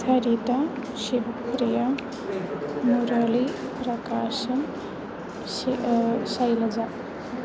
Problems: constant background noise, continuous background conversations